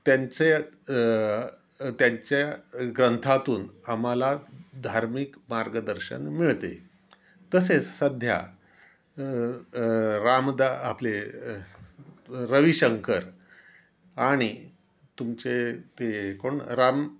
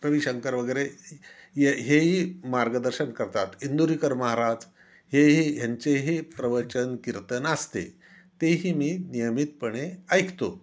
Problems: none marked